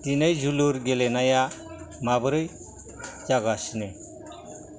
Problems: background sounds at intervals